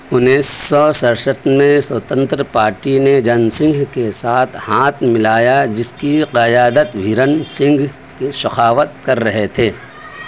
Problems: background conversations at intervals